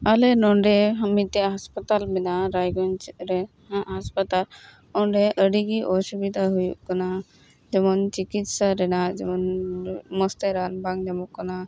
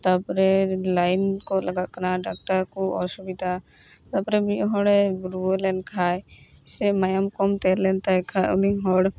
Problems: background sounds at intervals